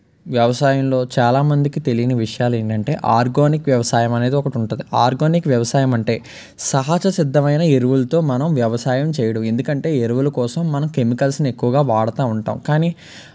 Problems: constant background noise